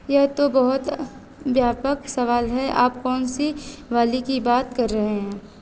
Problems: none marked